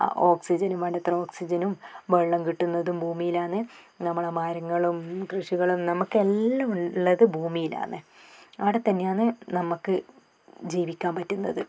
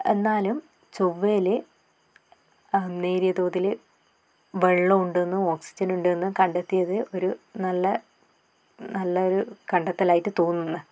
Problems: none marked